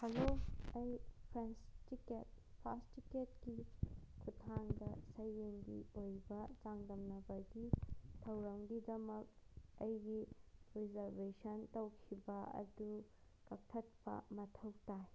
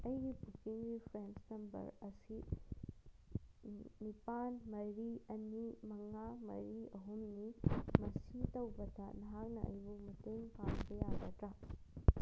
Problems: background sounds at intervals